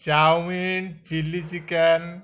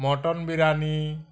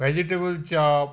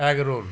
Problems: none marked